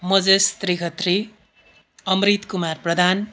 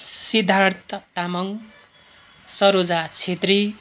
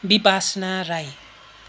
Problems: constant background noise